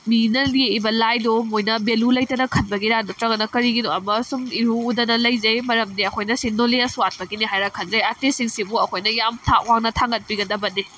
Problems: background sounds at intervals